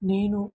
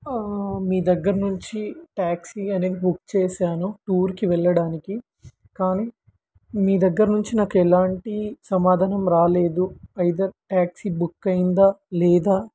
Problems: none marked